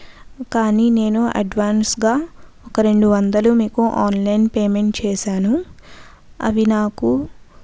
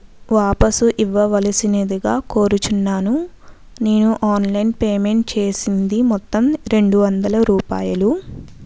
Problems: none marked